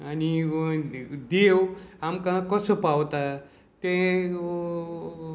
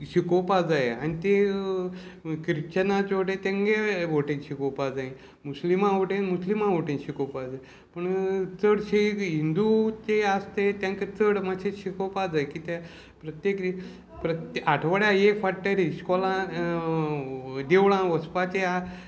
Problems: constant background noise, background conversations at intervals